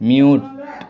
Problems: constant background noise